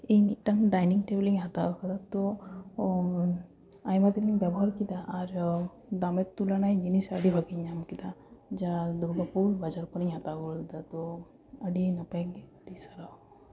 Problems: background sounds at intervals